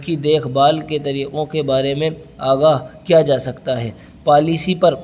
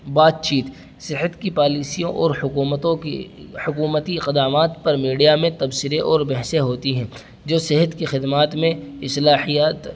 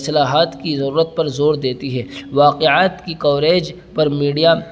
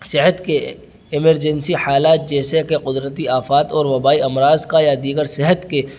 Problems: constant background noise